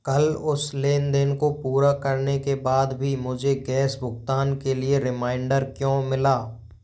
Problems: none marked